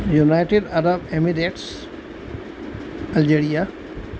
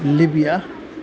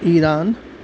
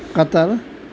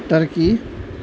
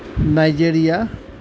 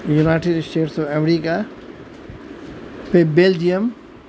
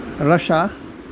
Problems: constant background noise